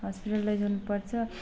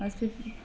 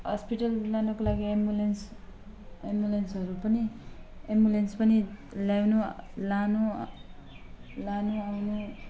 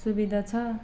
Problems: none marked